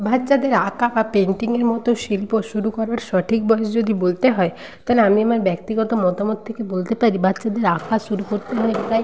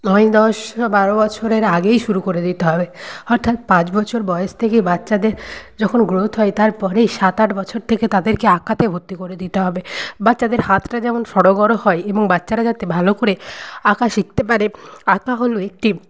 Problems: none marked